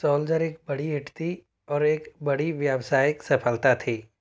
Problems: none marked